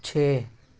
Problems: none marked